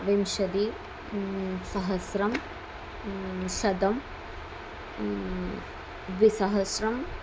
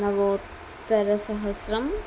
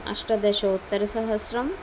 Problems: none marked